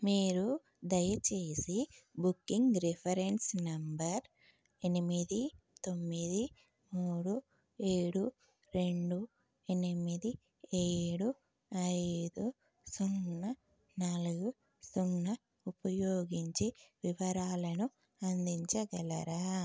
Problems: low volume